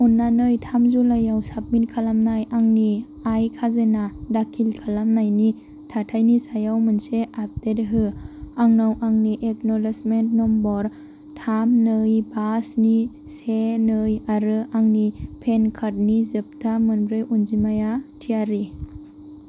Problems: constant background noise